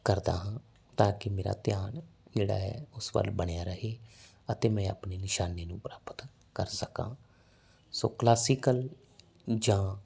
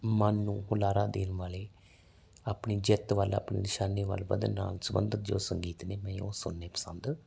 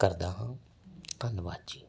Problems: background sounds at intervals